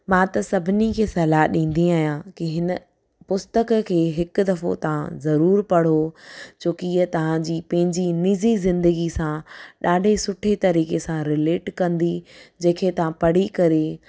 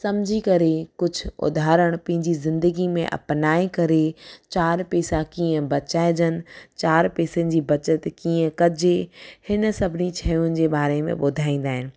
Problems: none marked